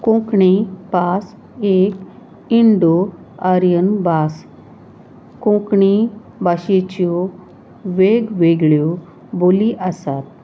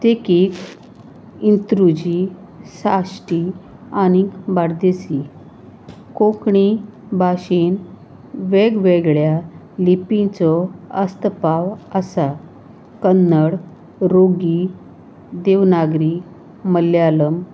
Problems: constant background noise, background conversations at intervals